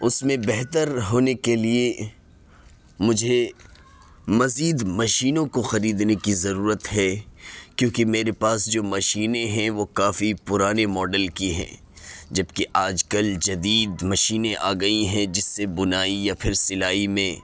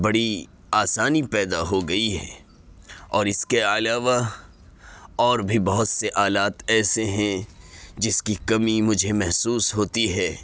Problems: background sounds at intervals